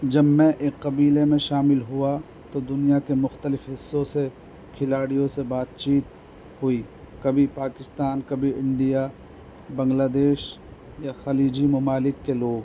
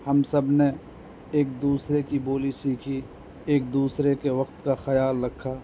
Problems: constant background noise, low volume